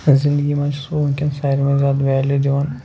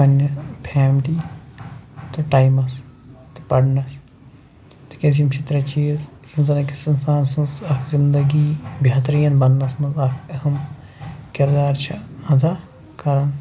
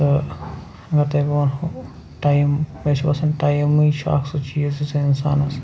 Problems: constant background noise